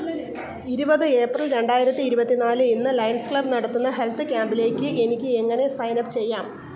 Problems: continuous background conversations, low volume